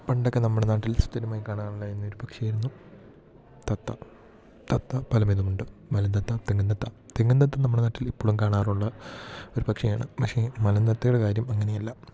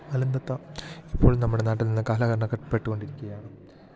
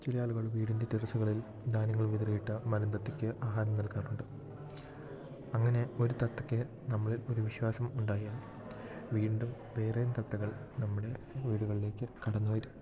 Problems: constant background noise, low volume